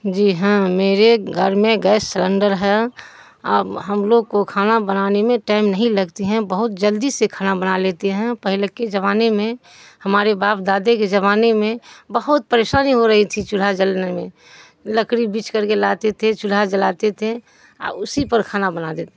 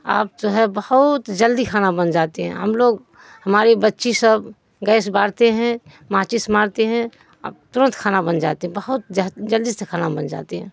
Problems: background sounds at intervals